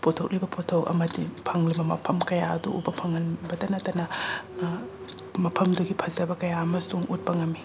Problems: background sounds at intervals